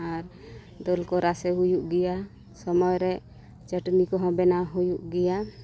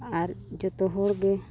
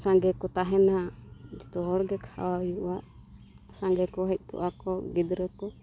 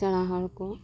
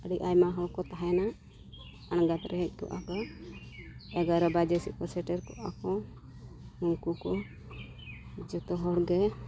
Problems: constant background noise, low volume